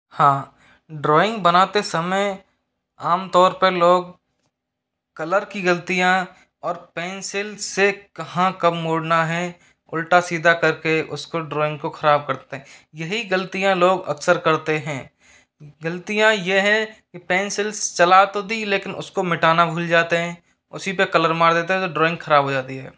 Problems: background sounds at intervals